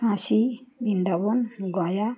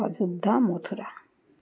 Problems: none marked